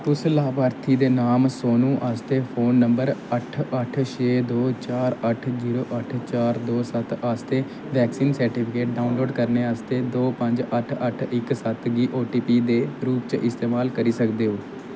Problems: constant background noise